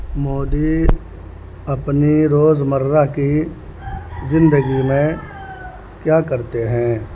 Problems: constant background noise